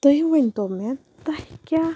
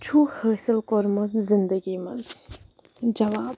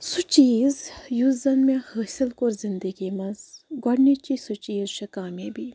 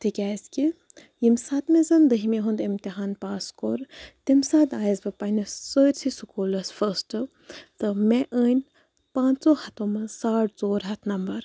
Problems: none marked